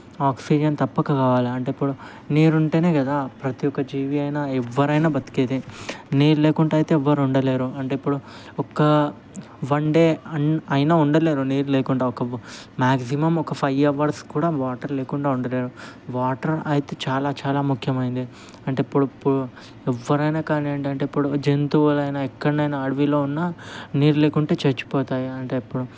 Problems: constant background noise